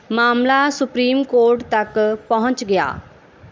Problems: none marked